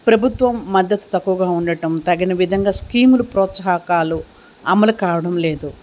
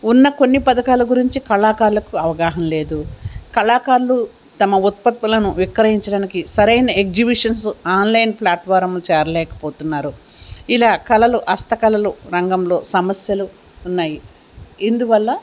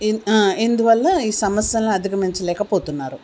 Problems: constant background noise